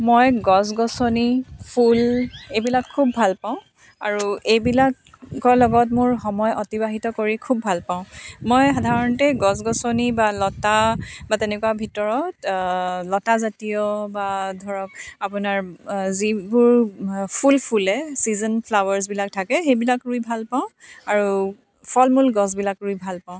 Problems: none marked